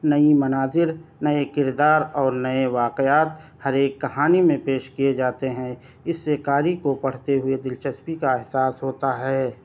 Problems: none marked